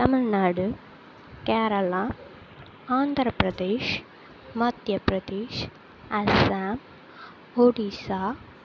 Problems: constant background noise